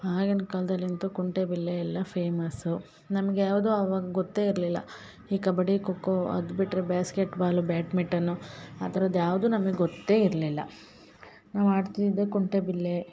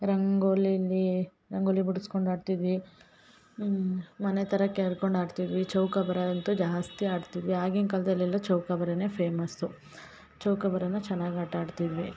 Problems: none marked